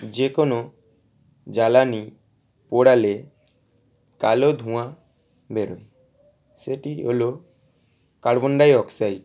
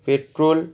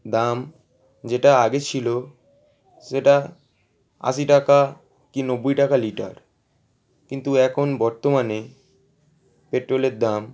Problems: background sounds at intervals